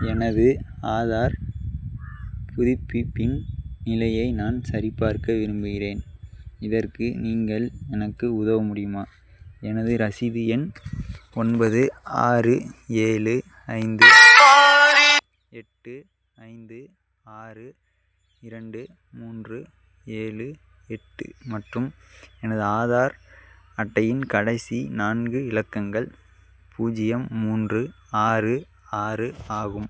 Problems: background sounds at intervals